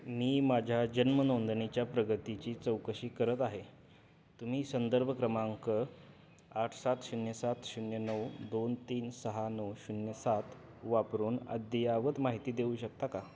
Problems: none marked